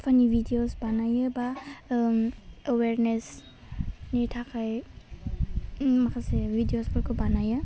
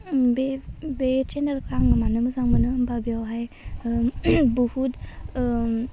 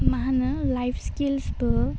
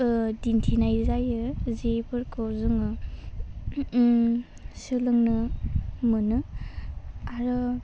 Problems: low volume